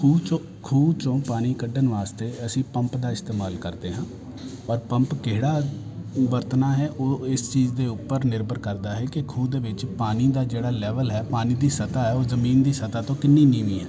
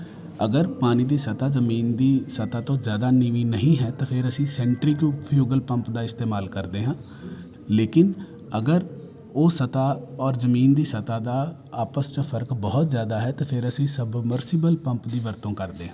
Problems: continuous background conversations